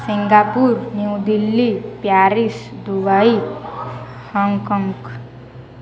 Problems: none marked